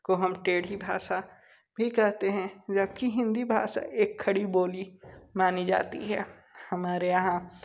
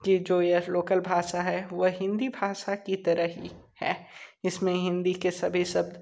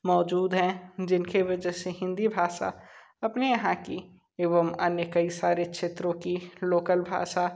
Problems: none marked